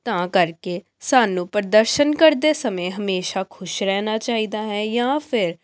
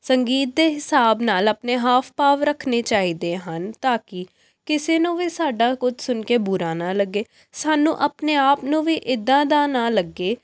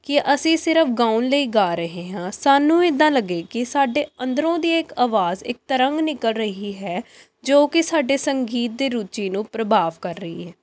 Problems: none marked